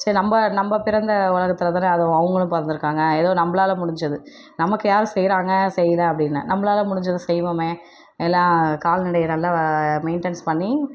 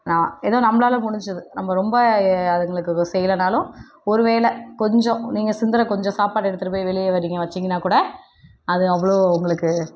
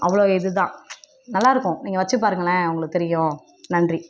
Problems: none marked